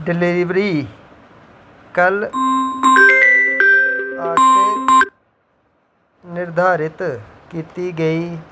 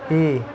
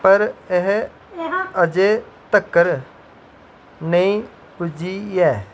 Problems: background sounds at intervals